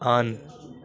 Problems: continuous background conversations